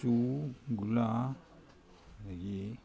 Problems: constant background noise